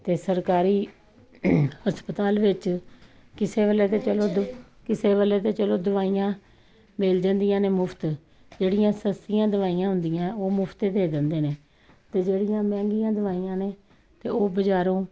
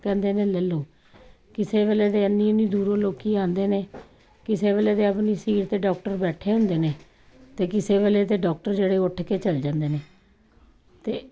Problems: constant background noise, background conversations at intervals